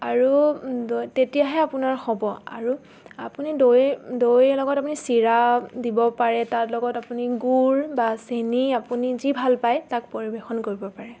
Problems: constant background noise